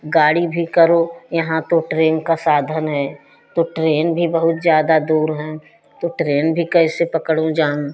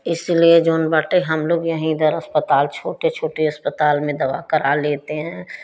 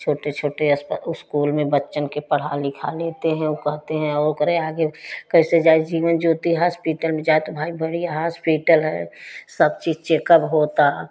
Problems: constant background noise